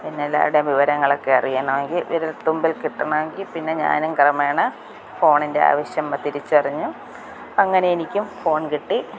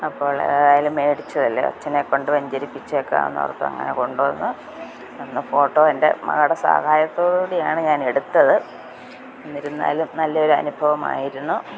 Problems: none marked